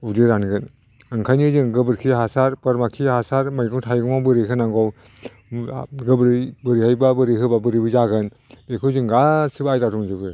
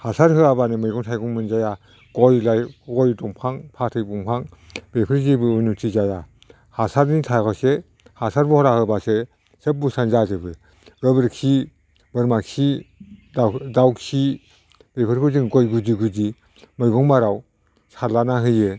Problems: none marked